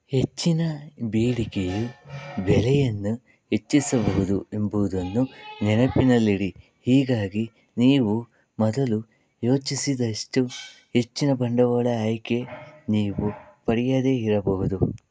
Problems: background sounds at intervals